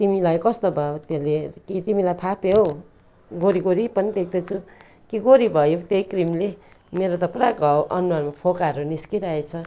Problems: none marked